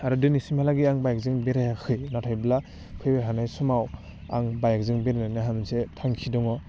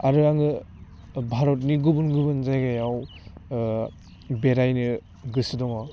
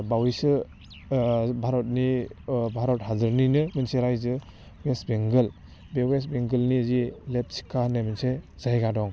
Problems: low volume